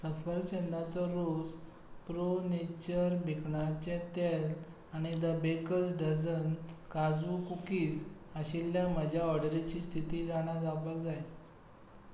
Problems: none marked